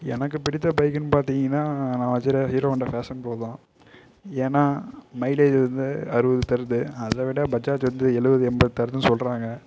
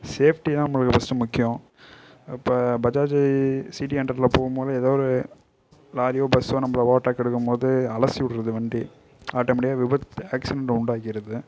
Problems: low volume